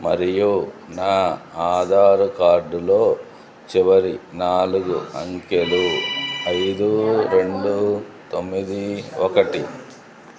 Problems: continuous background conversations